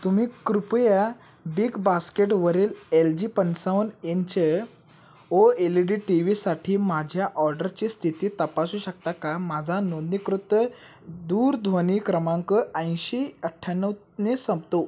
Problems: none marked